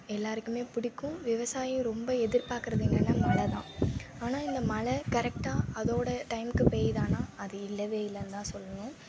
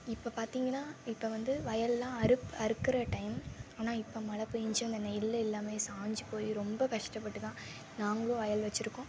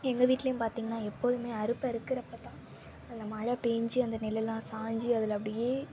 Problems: constant background noise